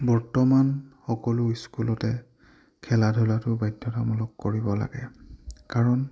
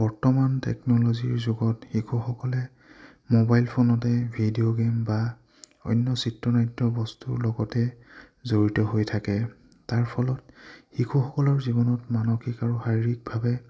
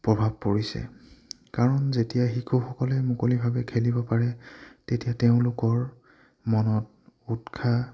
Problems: low volume